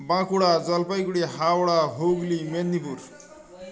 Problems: continuous background conversations